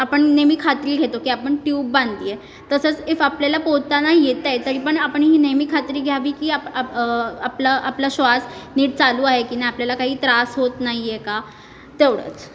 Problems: background sounds at intervals